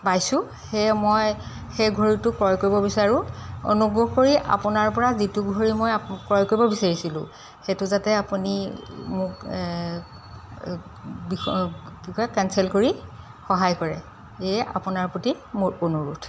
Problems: none marked